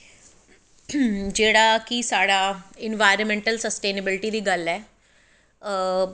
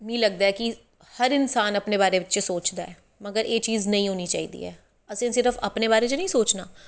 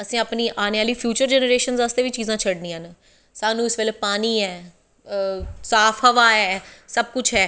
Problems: none marked